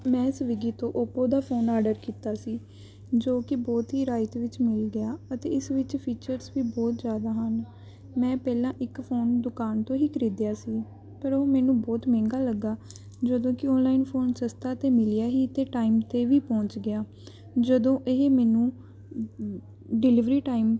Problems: background sounds at intervals